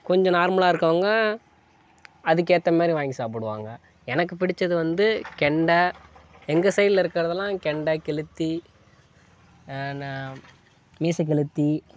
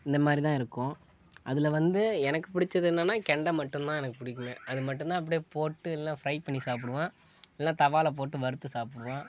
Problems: none marked